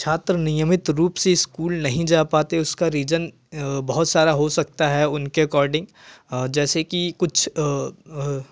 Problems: constant background noise